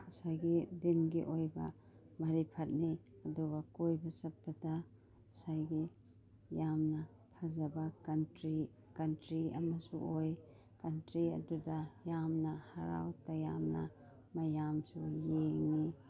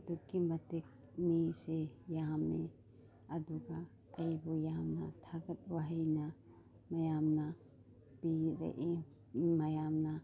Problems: none marked